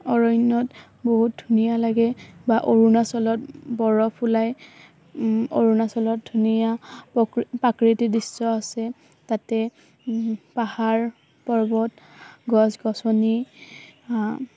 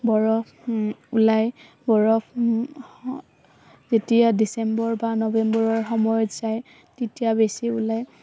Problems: constant background noise